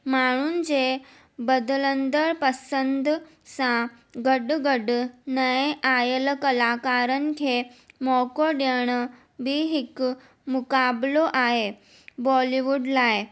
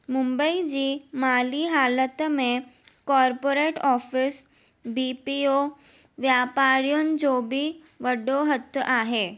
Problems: none marked